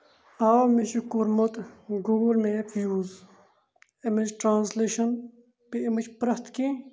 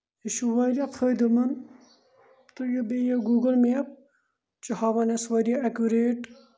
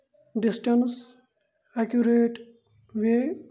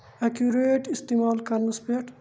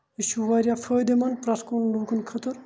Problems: none marked